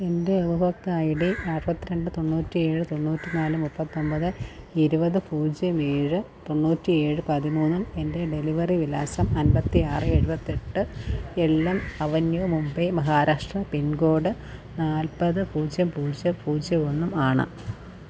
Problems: low volume